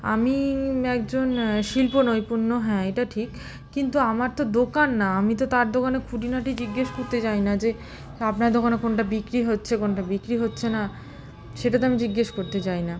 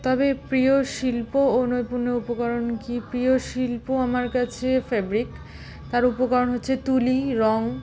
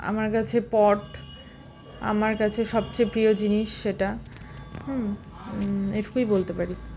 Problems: constant background noise, continuous background conversations